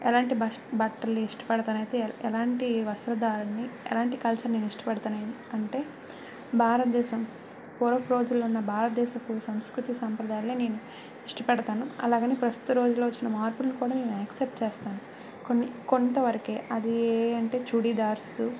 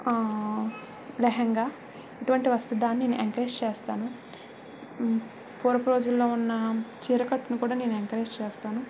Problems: constant background noise